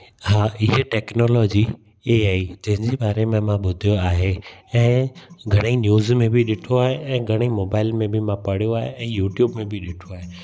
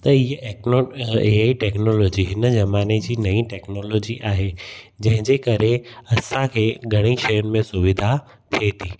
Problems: background sounds at intervals, echo